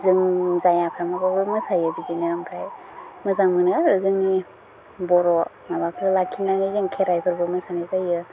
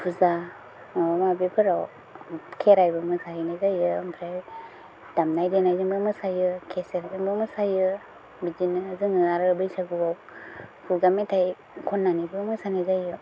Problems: constant background noise